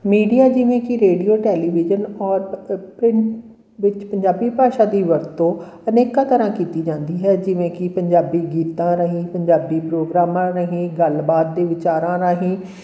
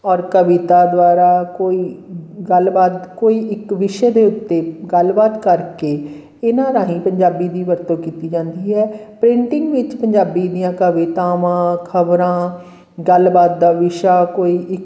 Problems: none marked